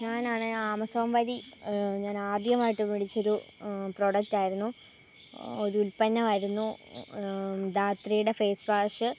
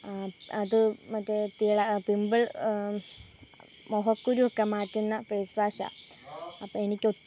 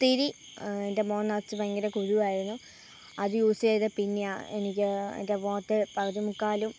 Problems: low volume